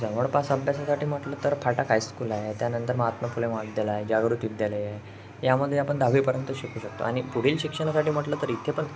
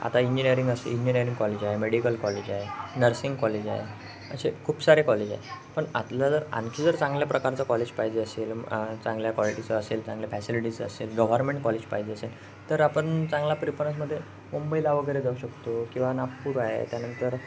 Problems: constant background noise, background conversations at intervals